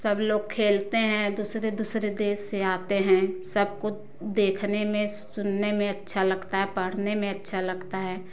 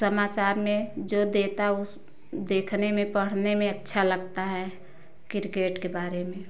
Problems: none marked